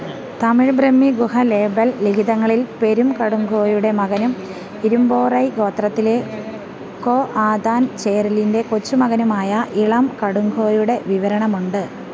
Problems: constant background noise